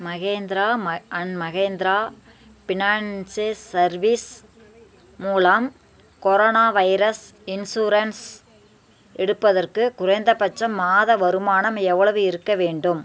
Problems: constant background noise